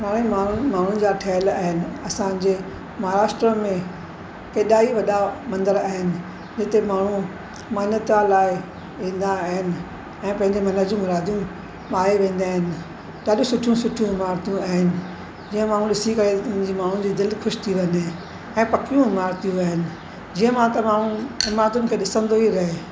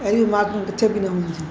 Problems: constant background noise